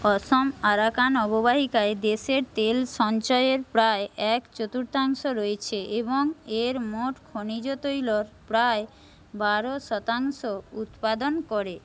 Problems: constant background noise